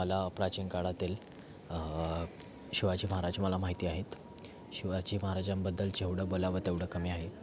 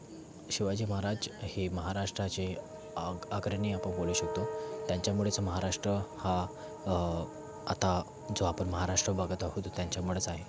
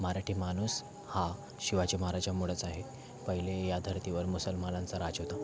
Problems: background sounds at intervals, continuous background conversations